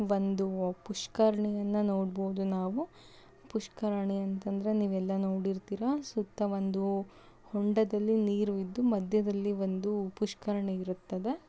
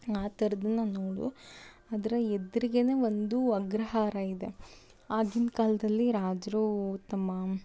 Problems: background sounds at intervals